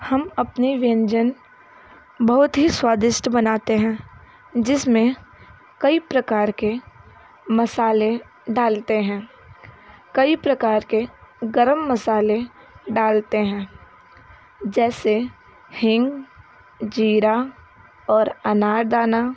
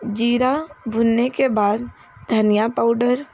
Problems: constant background noise